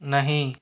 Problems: background sounds at intervals